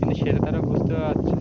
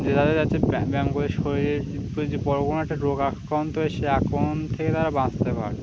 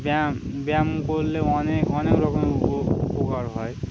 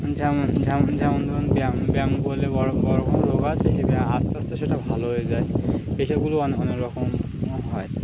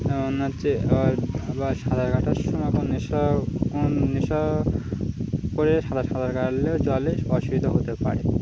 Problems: none marked